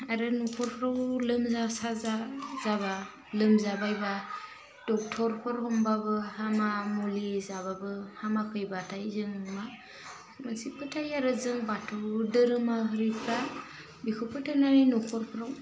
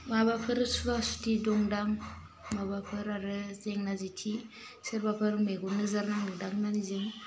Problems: low volume